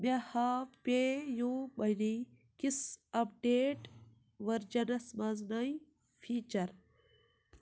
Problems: none marked